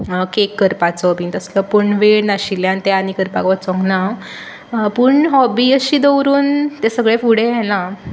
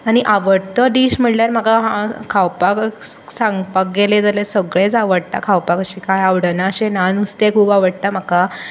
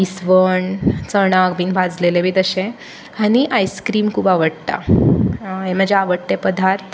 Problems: constant background noise